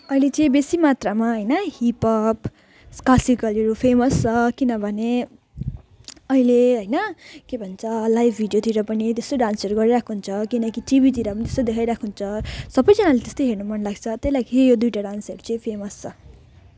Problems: none marked